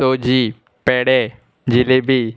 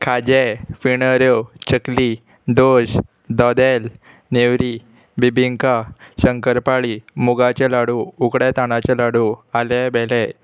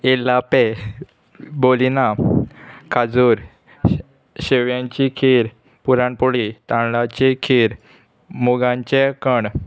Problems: constant background noise